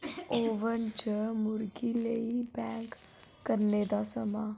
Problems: none marked